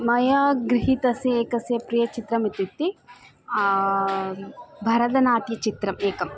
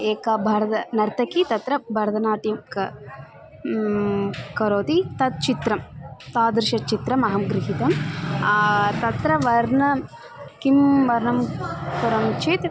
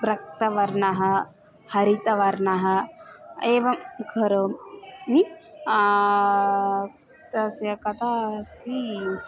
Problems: constant background noise, continuous background conversations